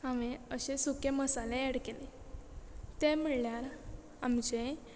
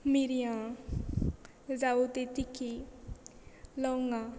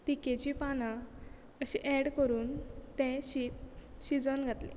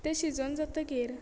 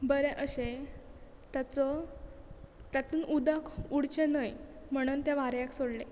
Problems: background sounds at intervals